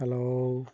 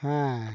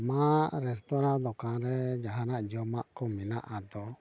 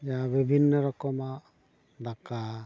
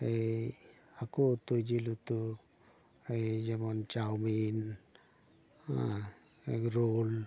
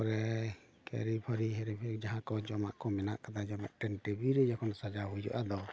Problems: constant background noise, background conversations at intervals